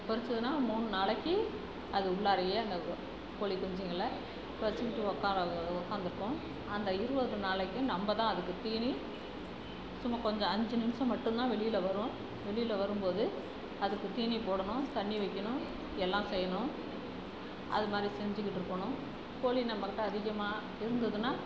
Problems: constant background noise, background conversations at intervals